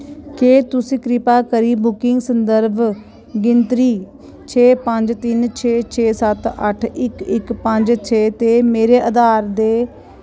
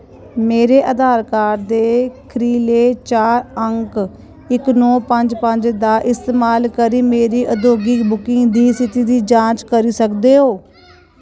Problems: constant background noise